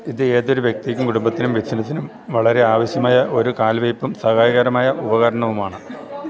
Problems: constant background noise